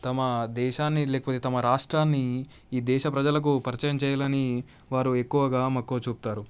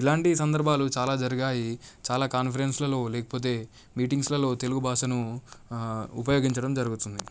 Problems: none marked